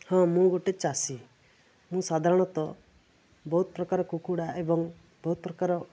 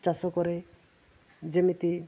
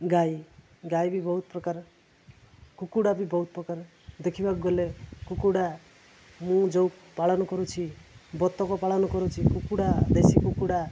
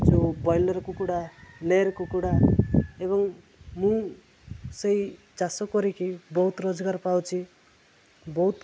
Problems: constant background noise